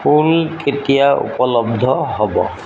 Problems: constant background noise